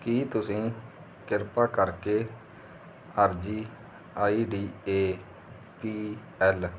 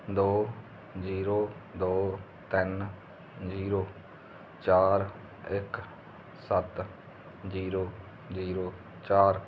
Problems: none marked